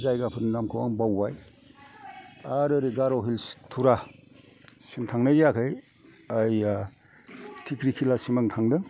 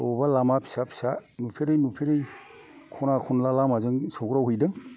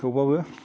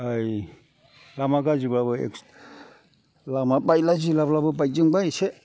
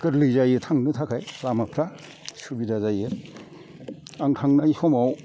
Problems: low volume